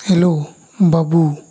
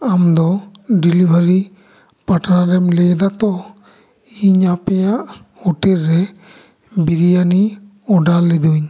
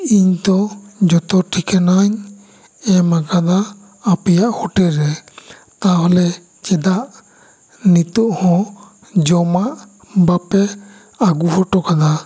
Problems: constant background noise